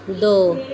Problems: background conversations at intervals